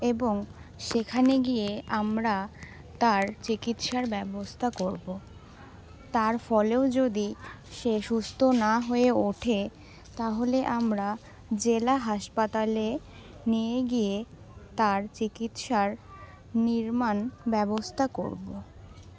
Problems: none marked